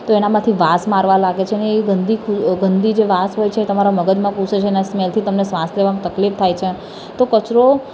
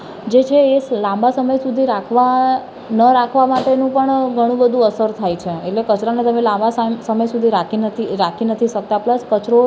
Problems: background sounds at intervals